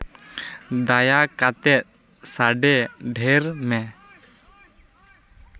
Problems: constant background noise, continuous background conversations